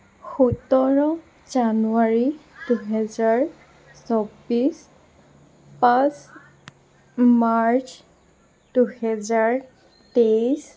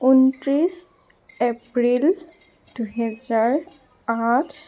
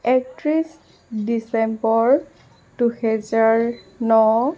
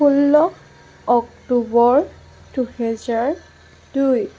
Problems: constant background noise